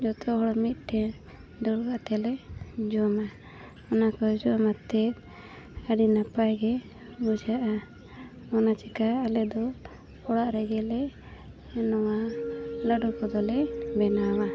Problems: constant background noise